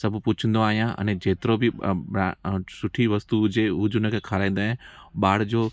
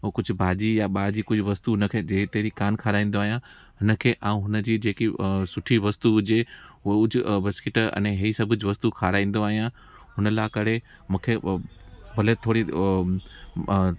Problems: constant background noise